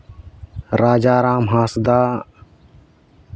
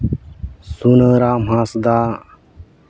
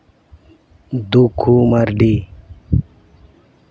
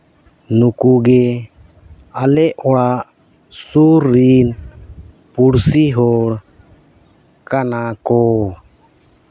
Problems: background sounds at intervals